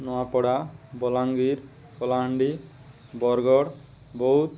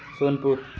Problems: none marked